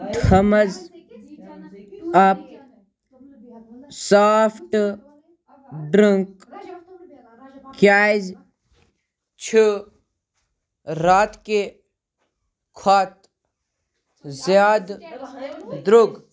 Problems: background conversations at intervals